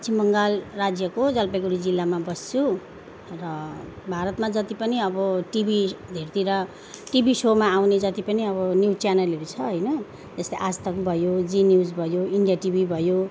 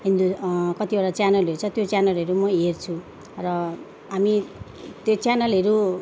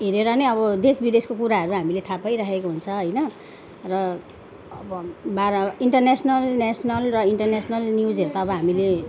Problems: background conversations at intervals